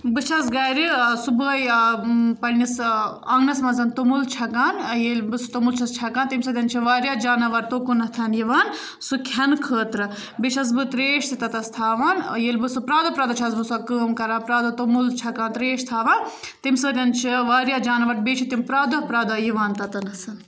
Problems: none marked